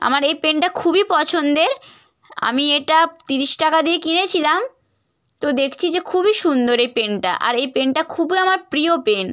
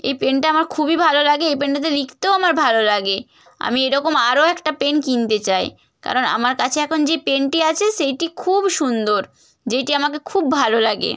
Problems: none marked